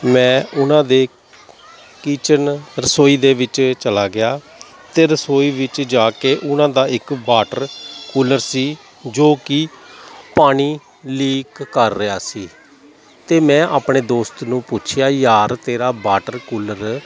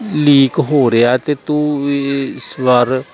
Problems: none marked